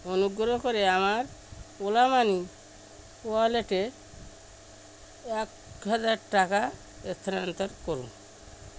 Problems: constant background noise